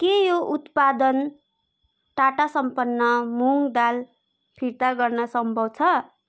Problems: constant background noise